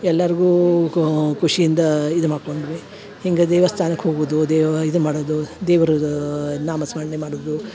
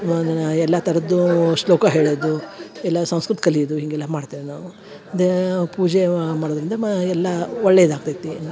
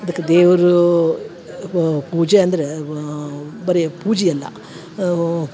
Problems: none marked